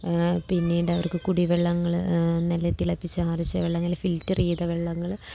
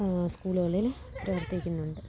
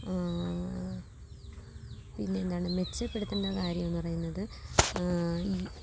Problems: background sounds at intervals, low volume